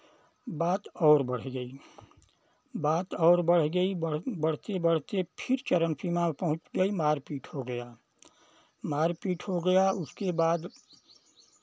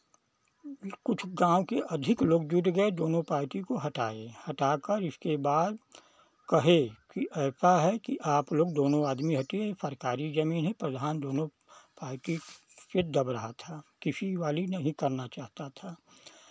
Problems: none marked